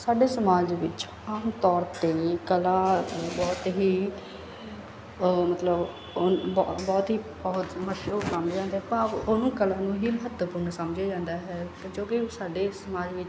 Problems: background sounds at intervals